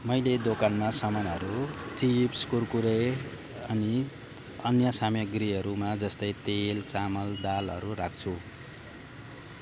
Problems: constant background noise